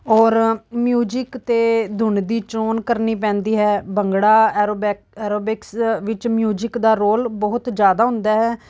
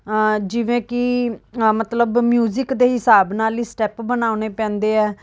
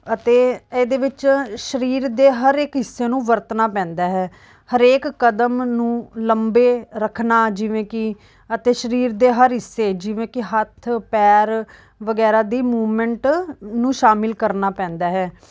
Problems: background sounds at intervals